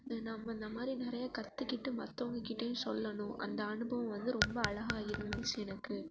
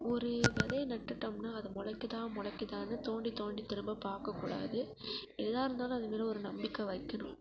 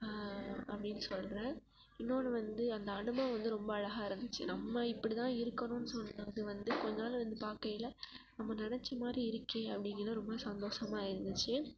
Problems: constant background noise, low volume